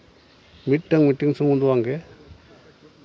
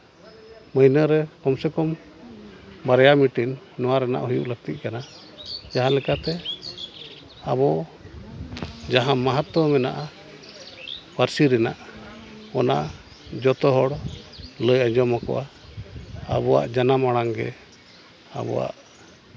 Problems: background conversations at intervals